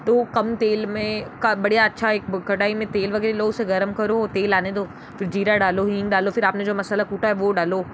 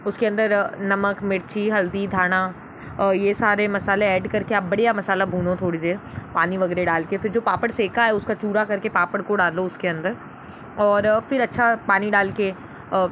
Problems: background sounds at intervals